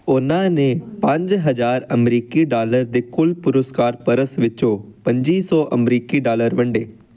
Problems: background sounds at intervals